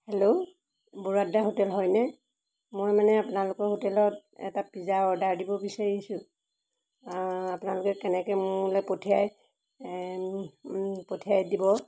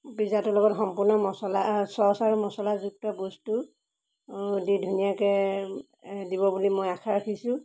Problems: background sounds at intervals